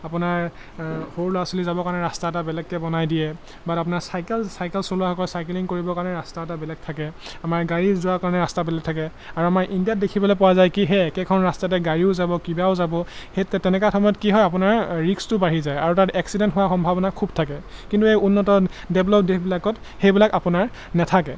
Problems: constant background noise